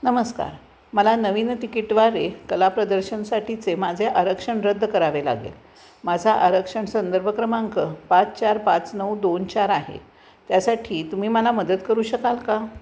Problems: constant background noise